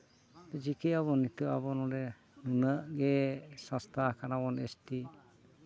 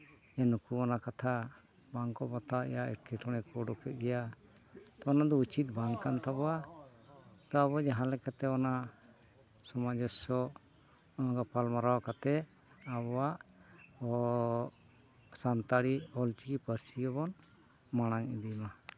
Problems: continuous background conversations